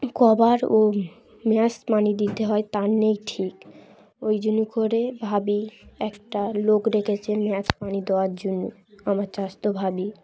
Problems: constant background noise